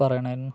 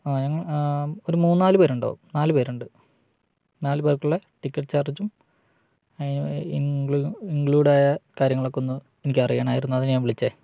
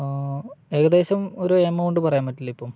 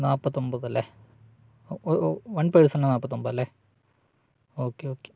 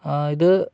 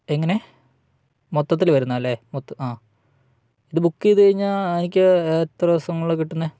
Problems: none marked